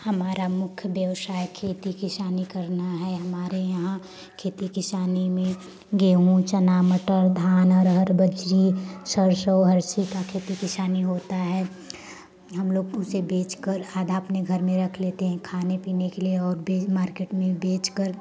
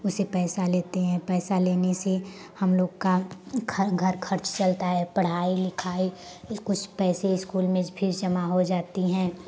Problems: none marked